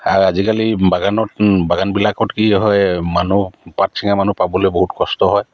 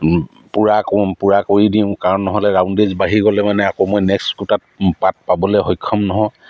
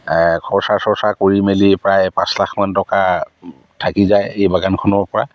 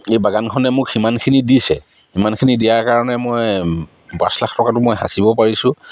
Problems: background sounds at intervals